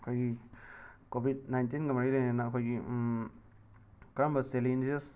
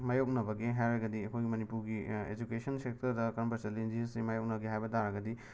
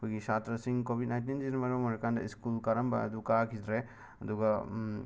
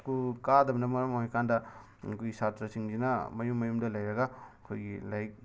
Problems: background sounds at intervals